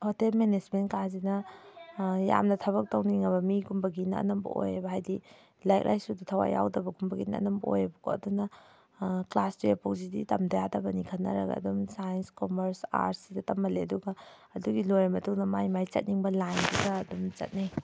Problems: none marked